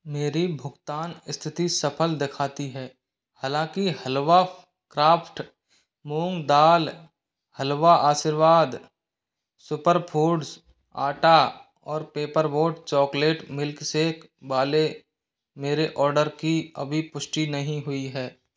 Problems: background sounds at intervals